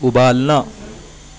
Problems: none marked